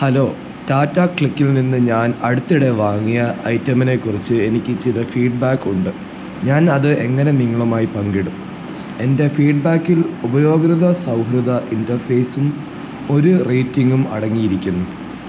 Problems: low volume